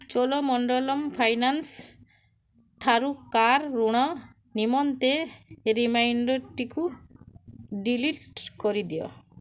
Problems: low volume